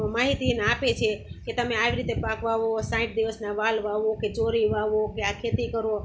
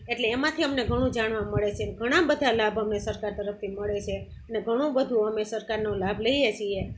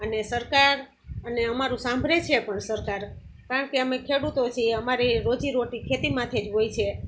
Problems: constant background noise